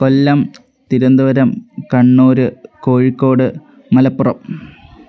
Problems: background sounds at intervals